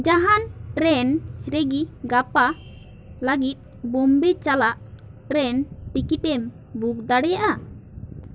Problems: none marked